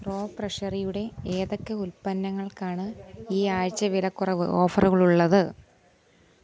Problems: background sounds at intervals